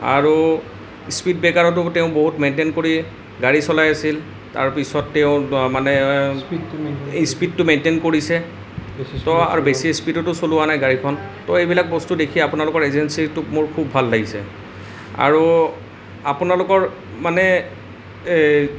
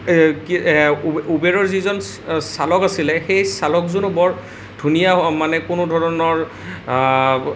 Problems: none marked